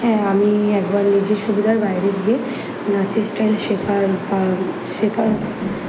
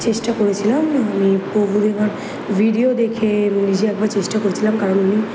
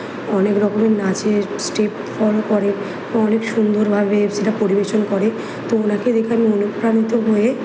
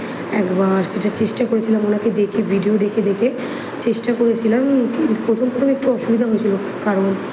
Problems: background sounds at intervals